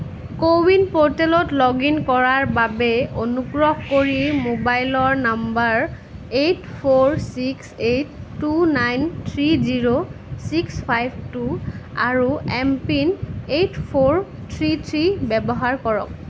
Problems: constant background noise